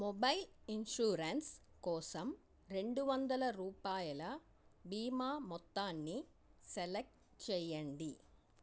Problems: low volume